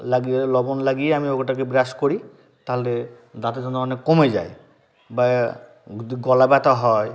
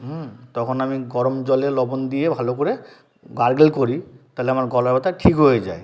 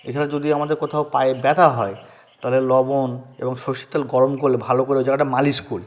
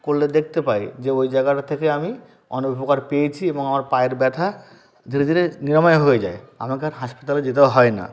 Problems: background conversations at intervals